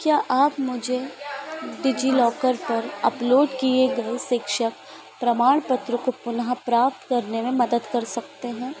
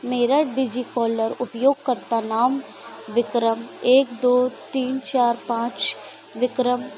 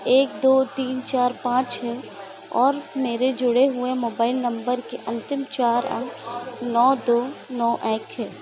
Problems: constant background noise